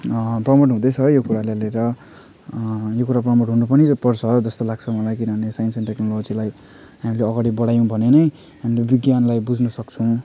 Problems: background conversations at intervals